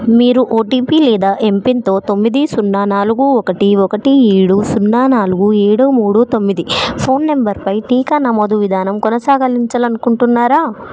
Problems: background conversations at intervals